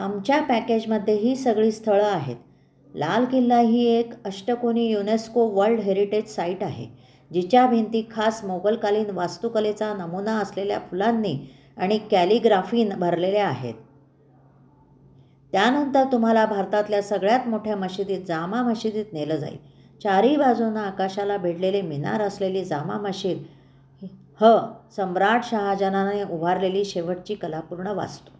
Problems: none marked